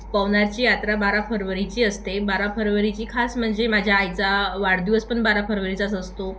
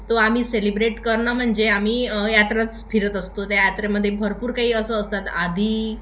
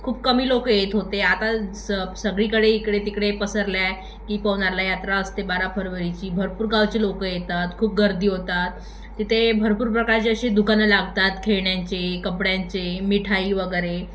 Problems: constant background noise, background conversations at intervals, echo